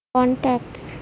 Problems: constant background noise